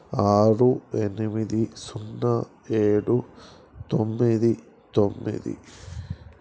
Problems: background sounds at intervals